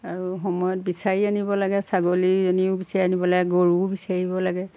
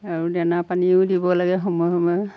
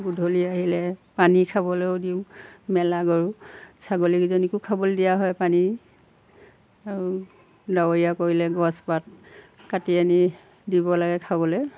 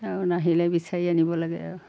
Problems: background sounds at intervals